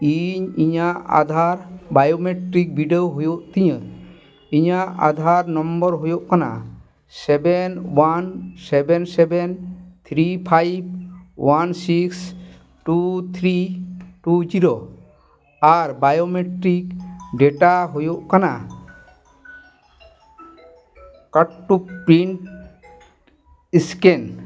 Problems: background sounds at intervals, background conversations at intervals